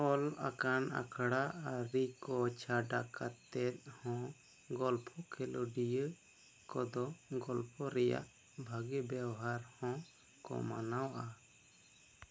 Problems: low volume